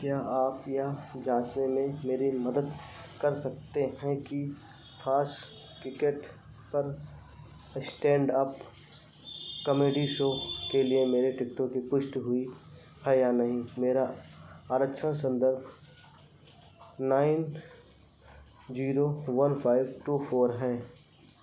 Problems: none marked